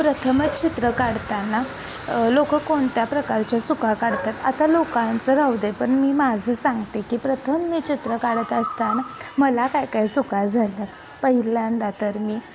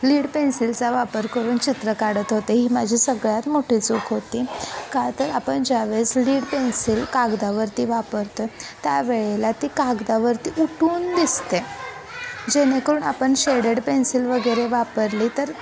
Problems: constant background noise, continuous background conversations